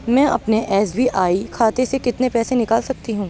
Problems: none marked